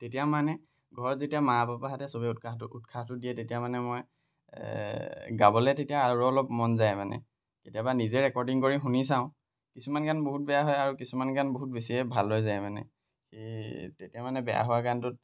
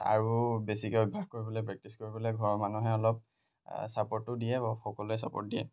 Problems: none marked